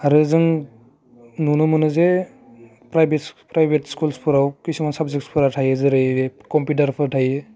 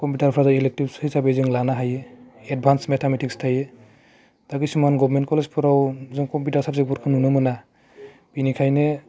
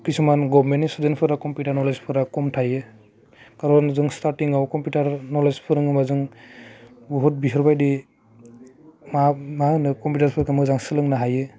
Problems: none marked